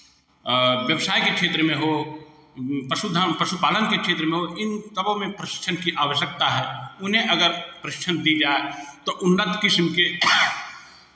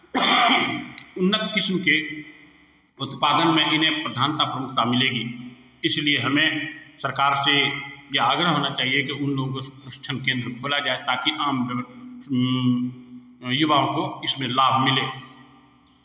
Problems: none marked